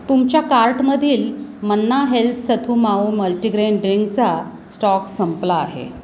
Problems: constant background noise